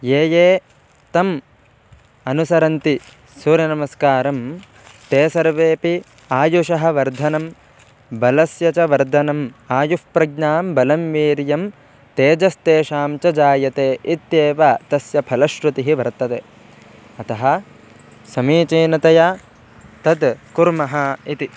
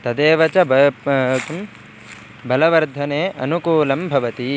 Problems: background sounds at intervals